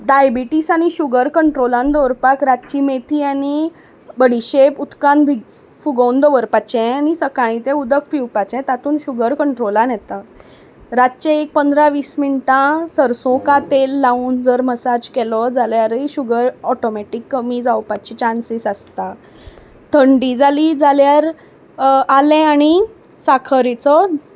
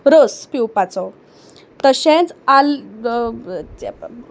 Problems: background sounds at intervals